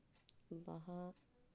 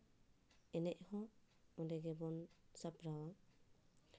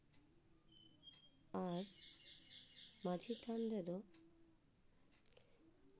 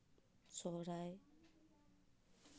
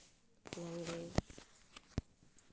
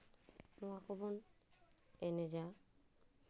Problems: low volume